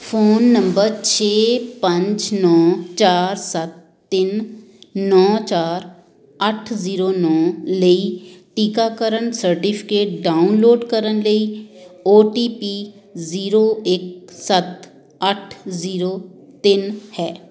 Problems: continuous background conversations